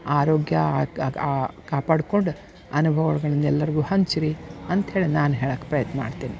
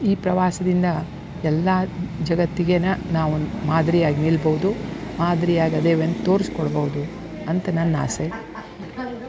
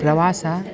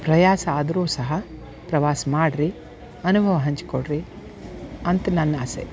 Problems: background sounds at intervals